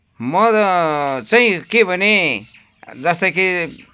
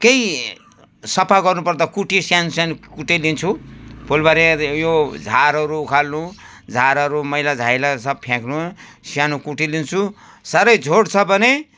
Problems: constant background noise